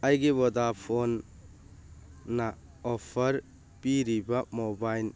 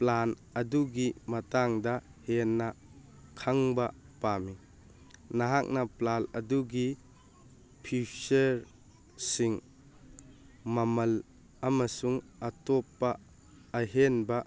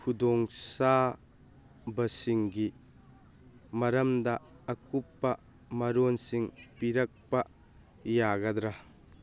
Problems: background sounds at intervals